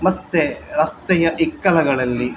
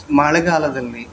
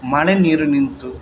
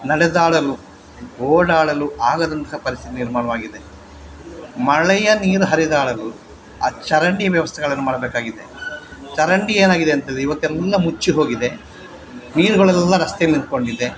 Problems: background sounds at intervals